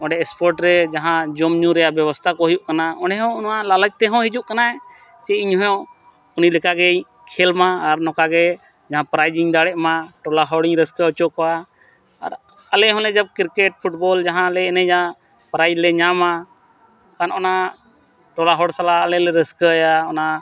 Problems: constant background noise